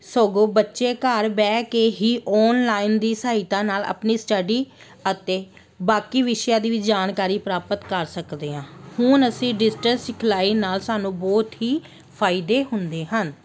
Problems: none marked